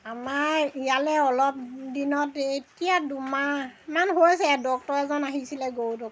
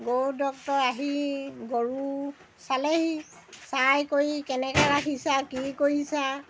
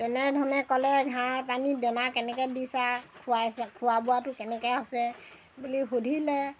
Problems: none marked